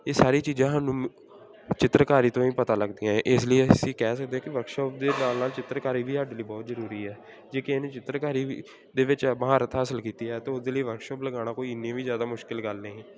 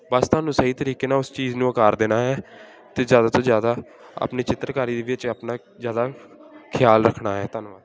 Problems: none marked